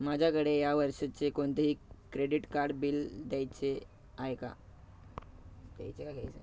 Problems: background sounds at intervals, background conversations at intervals